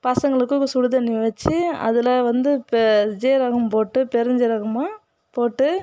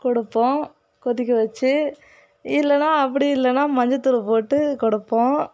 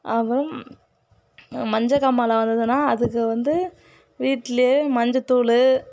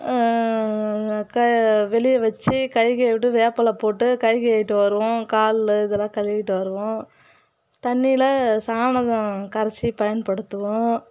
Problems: background sounds at intervals